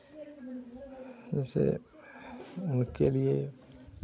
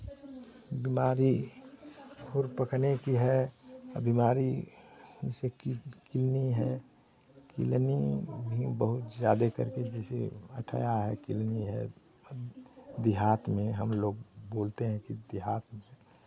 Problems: none marked